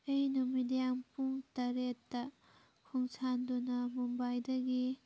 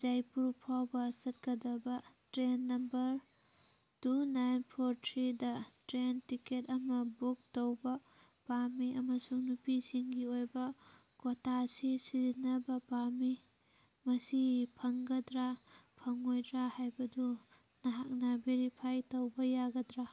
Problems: background sounds at intervals